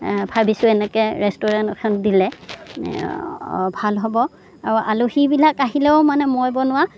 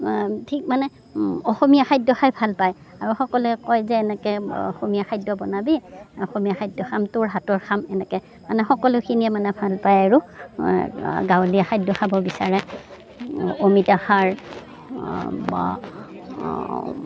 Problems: background sounds at intervals, background conversations at intervals